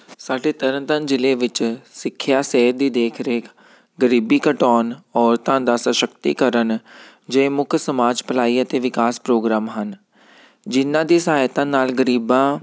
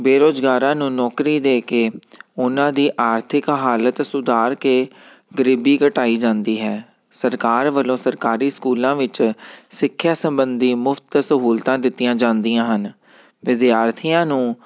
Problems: none marked